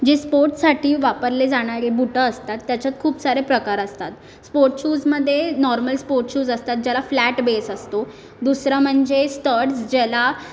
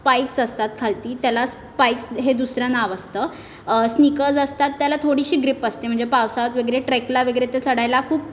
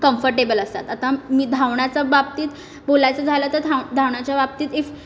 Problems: background sounds at intervals